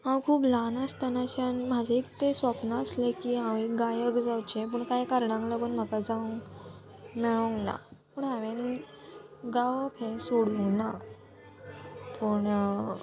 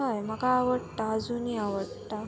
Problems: constant background noise, background conversations at intervals